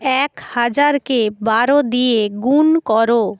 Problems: background sounds at intervals